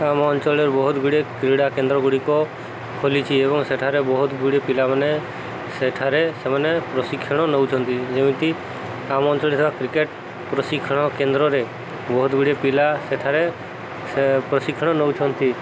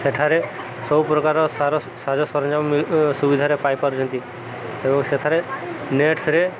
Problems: constant background noise, background conversations at intervals